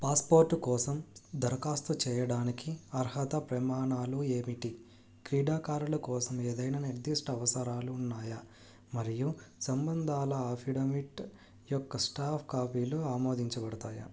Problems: low volume